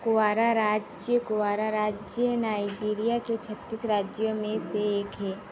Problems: none marked